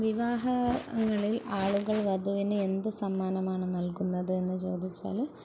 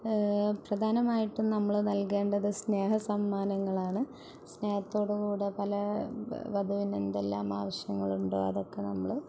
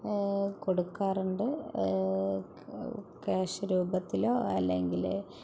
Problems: background sounds at intervals